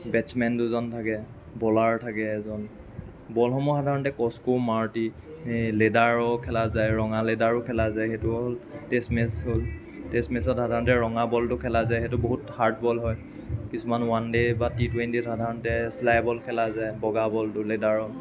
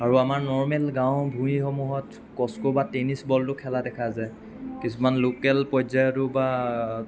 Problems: none marked